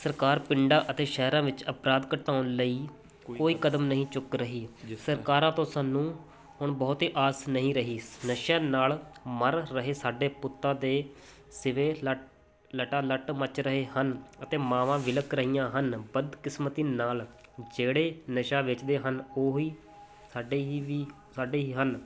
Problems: constant background noise